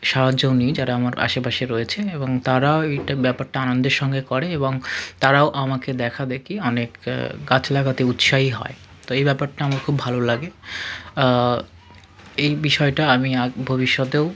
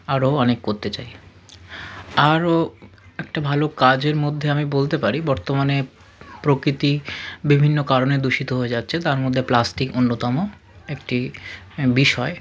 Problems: constant background noise, continuous background conversations